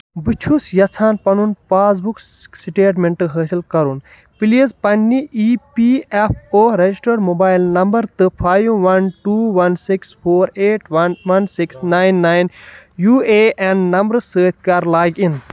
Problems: none marked